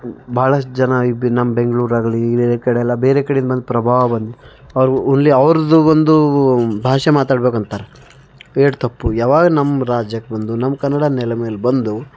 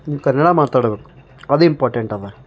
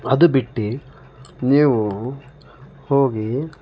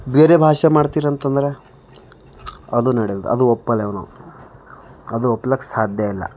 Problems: background sounds at intervals